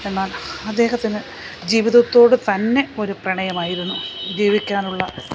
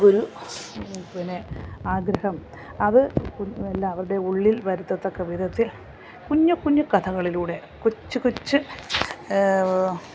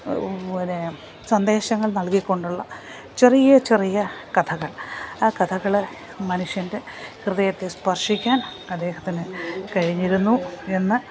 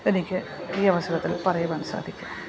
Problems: constant background noise